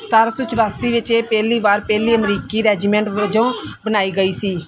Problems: constant background noise